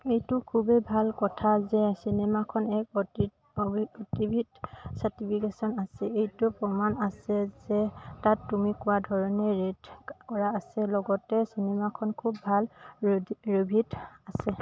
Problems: constant background noise